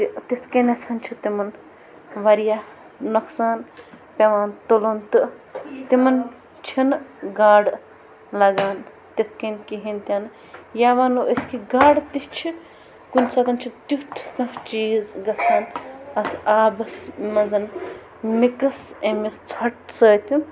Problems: constant background noise, background conversations at intervals